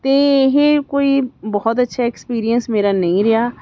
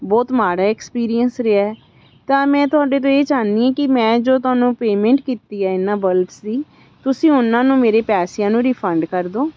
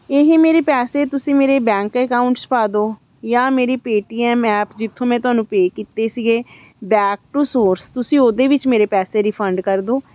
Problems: constant background noise